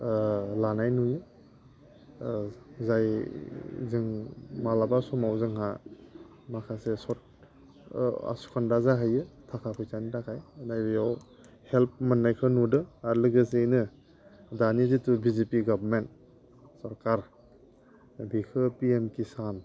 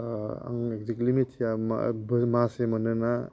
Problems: constant background noise